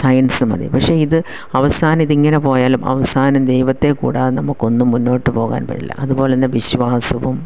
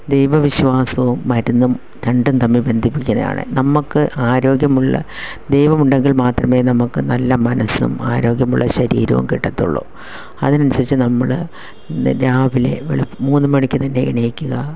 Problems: none marked